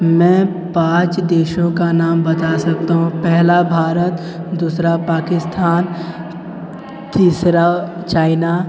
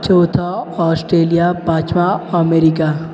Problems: continuous background conversations